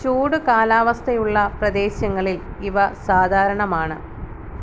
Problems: constant background noise